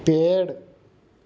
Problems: none marked